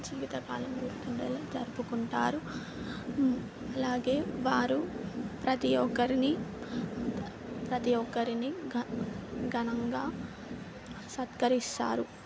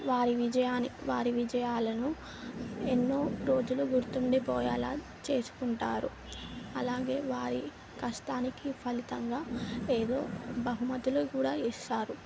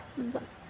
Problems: constant background noise